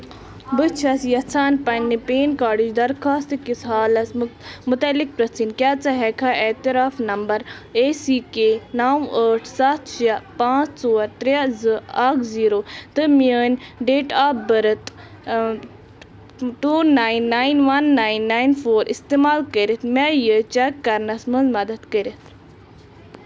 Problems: constant background noise